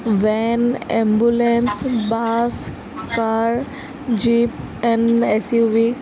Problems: constant background noise, background conversations at intervals